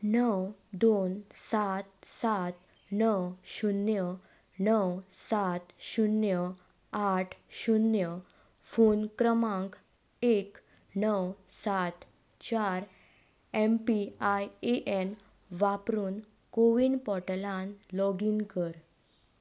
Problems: none marked